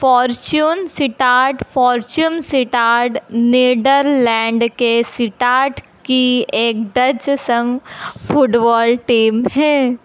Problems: constant background noise